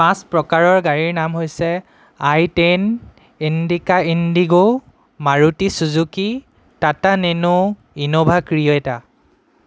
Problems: none marked